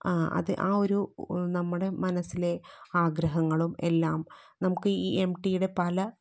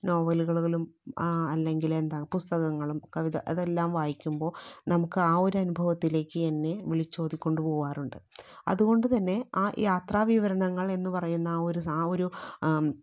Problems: low volume